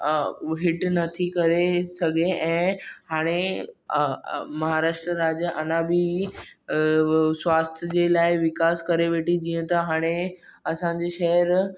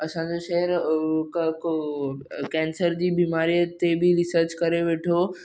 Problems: none marked